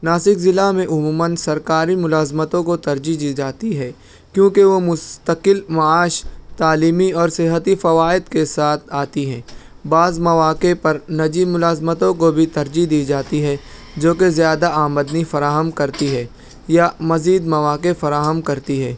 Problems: background sounds at intervals